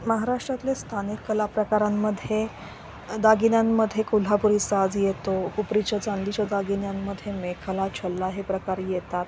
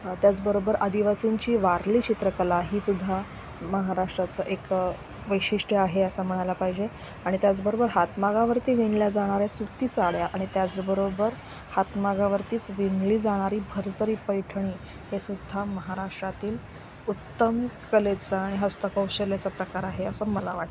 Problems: constant background noise